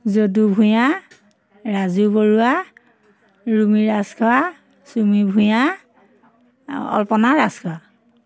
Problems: constant background noise, background conversations at intervals